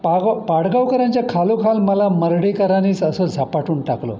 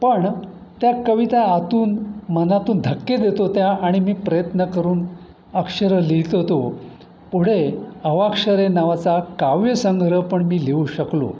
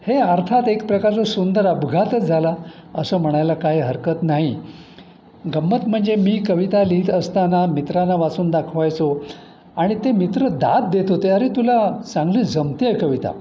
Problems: constant background noise